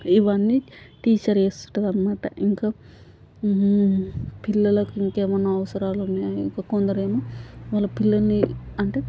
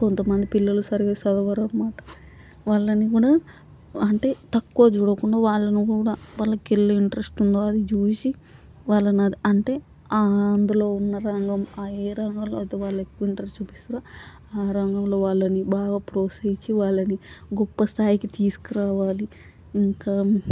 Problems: constant background noise